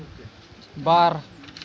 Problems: none marked